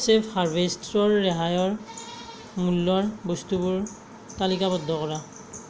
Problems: background sounds at intervals